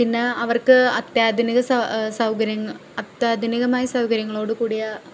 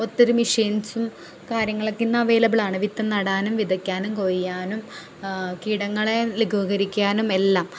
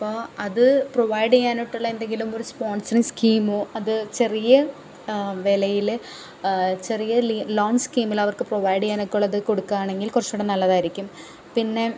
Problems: background sounds at intervals